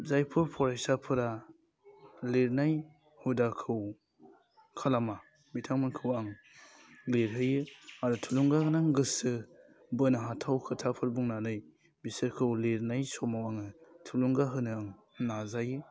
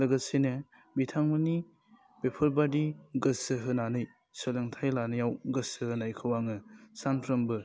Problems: constant background noise